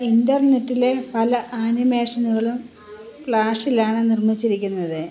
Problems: constant background noise